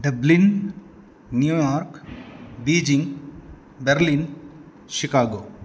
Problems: constant background noise